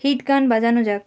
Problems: none marked